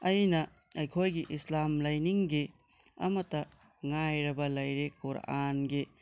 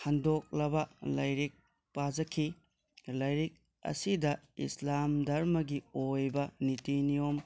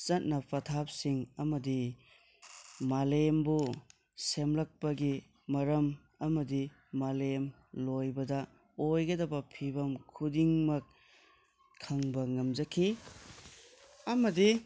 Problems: background conversations at intervals